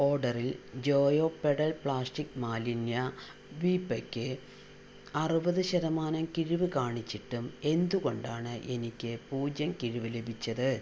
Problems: none marked